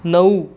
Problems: constant background noise